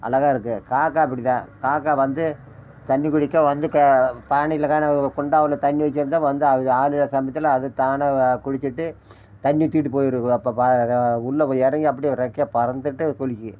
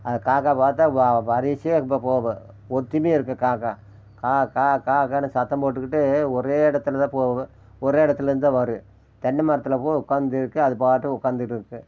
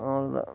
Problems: background sounds at intervals